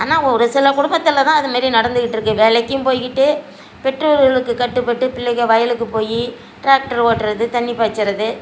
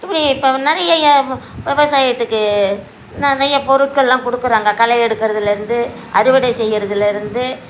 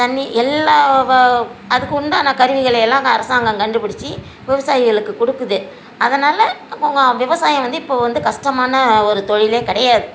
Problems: none marked